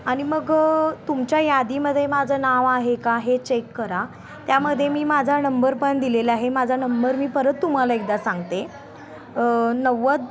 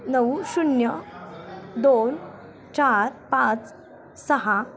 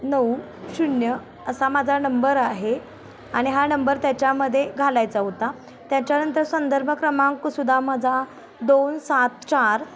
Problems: background sounds at intervals